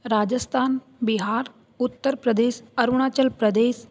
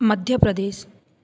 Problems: none marked